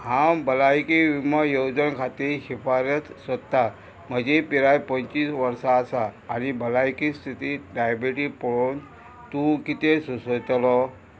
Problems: constant background noise